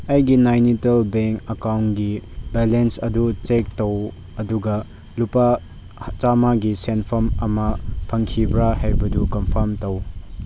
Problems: background sounds at intervals